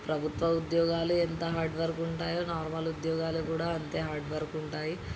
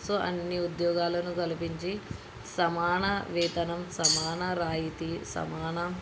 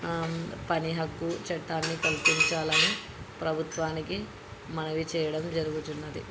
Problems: constant background noise, background conversations at intervals